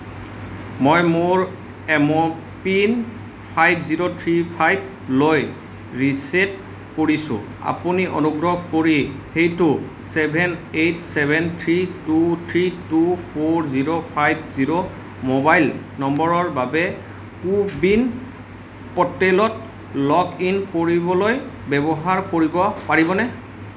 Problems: background sounds at intervals